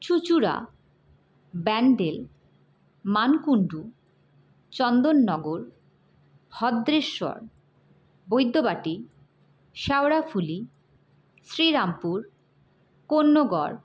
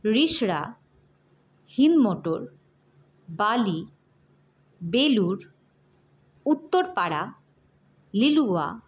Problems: none marked